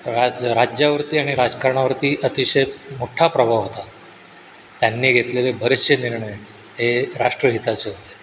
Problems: constant background noise